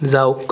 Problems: background sounds at intervals